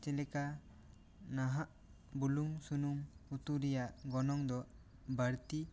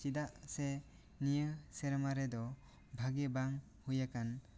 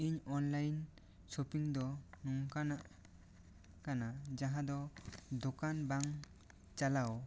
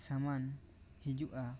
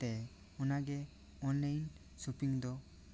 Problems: none marked